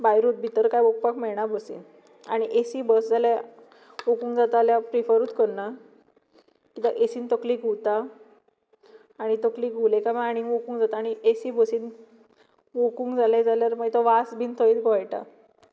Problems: none marked